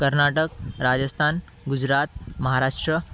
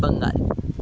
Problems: constant background noise, continuous background conversations